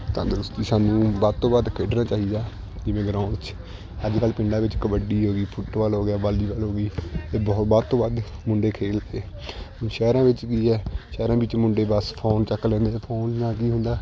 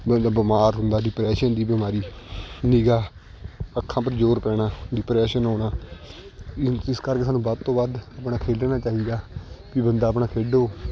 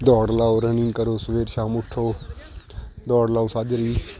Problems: constant background noise